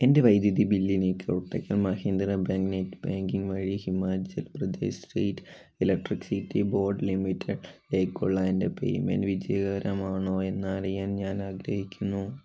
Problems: none marked